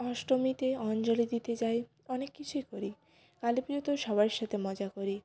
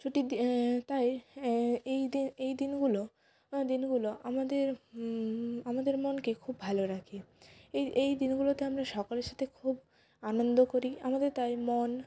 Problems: continuous background conversations